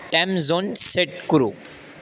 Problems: constant background noise